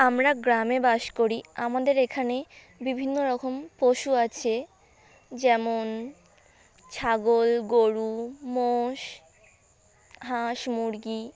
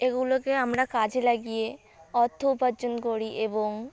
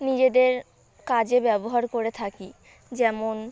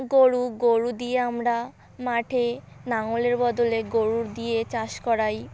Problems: constant background noise